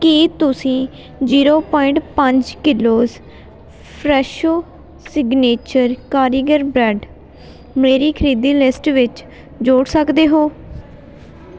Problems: continuous background conversations